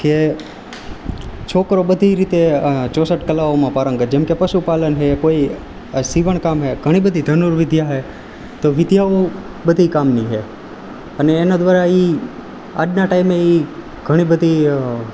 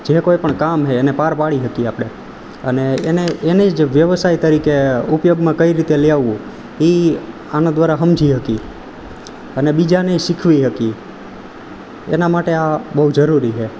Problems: none marked